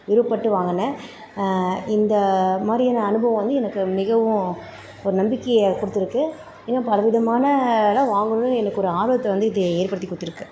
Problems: constant background noise